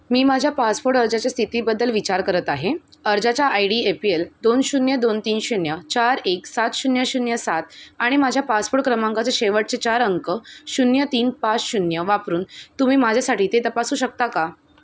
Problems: constant background noise